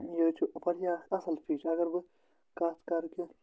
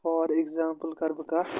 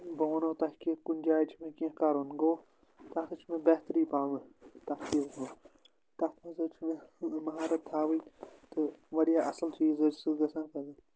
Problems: none marked